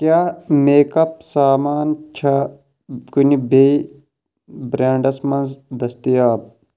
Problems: none marked